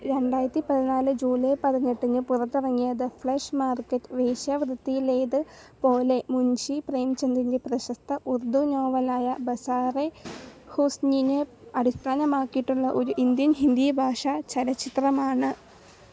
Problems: background sounds at intervals, low volume